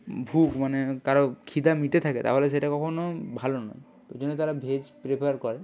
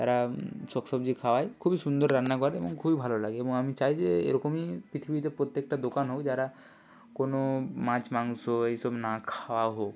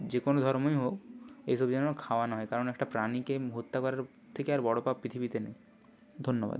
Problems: none marked